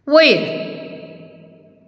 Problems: background sounds at intervals